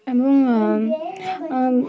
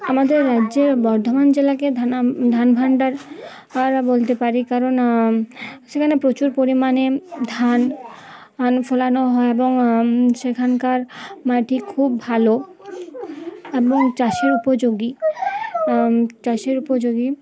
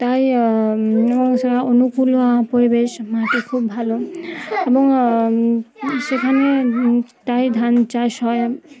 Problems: constant background noise, background conversations at intervals